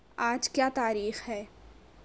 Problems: none marked